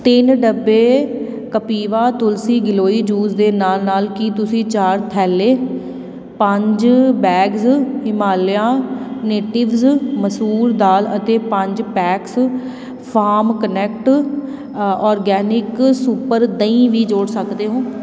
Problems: constant background noise